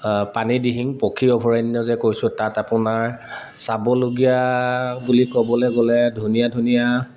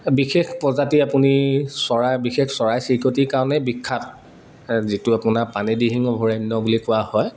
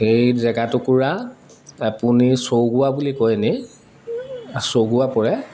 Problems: constant background noise, background conversations at intervals